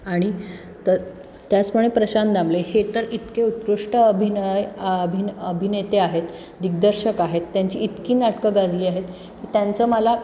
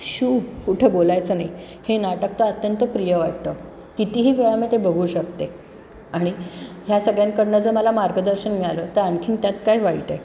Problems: background sounds at intervals